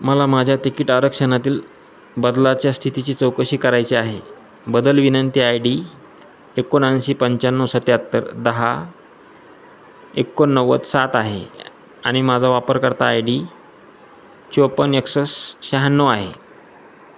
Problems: constant background noise